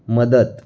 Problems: none marked